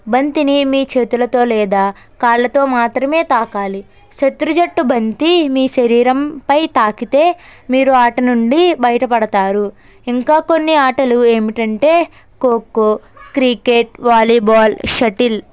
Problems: background sounds at intervals